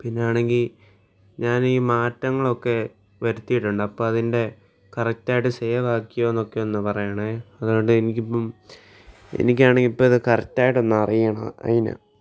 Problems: none marked